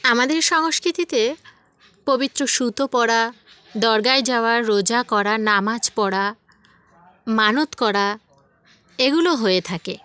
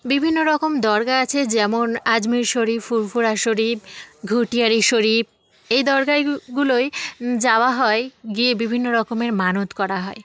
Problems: none marked